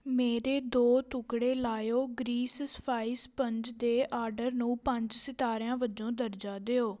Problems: background conversations at intervals